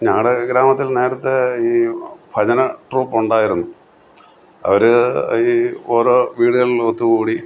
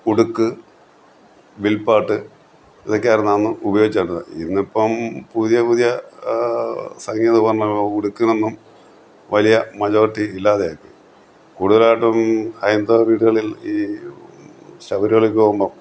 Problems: constant background noise